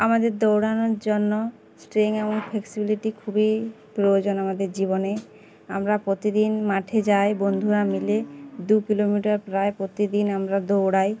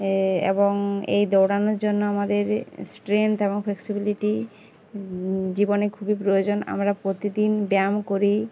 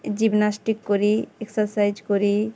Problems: constant background noise, background conversations at intervals